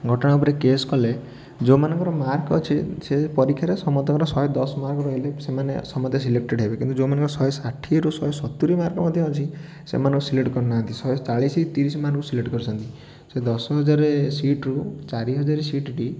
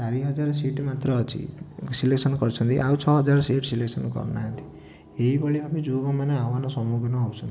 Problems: background sounds at intervals, continuous background conversations